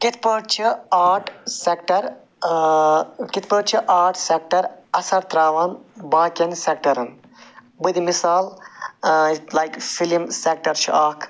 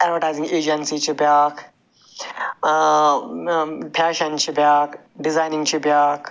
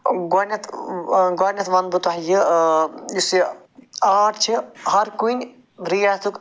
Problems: constant background noise